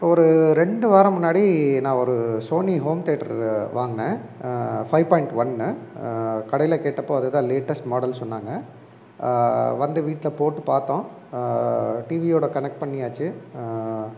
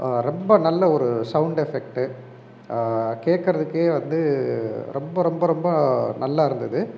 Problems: background sounds at intervals